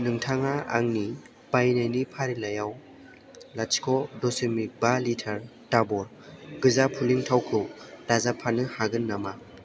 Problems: none marked